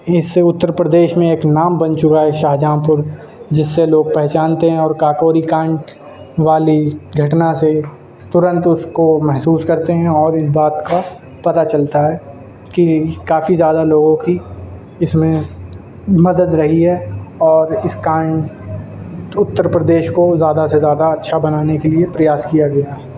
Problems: constant background noise